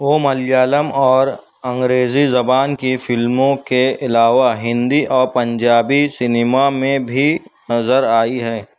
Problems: none marked